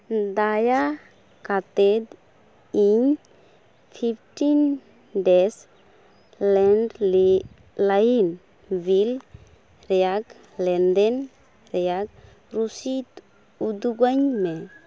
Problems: background sounds at intervals